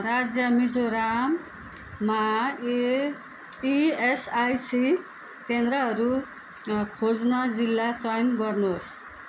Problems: background sounds at intervals